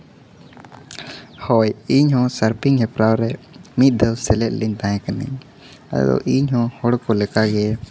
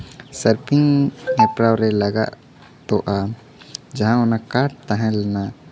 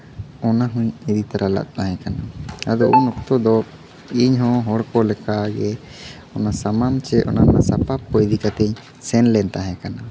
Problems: none marked